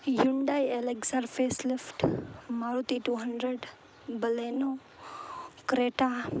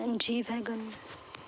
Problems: none marked